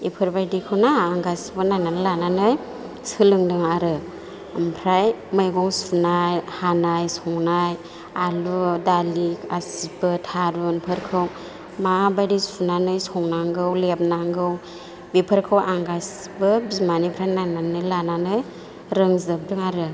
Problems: none marked